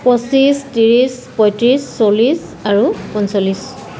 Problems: constant background noise, background conversations at intervals